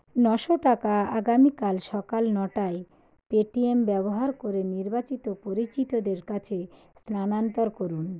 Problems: none marked